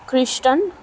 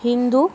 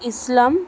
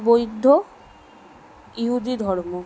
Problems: constant background noise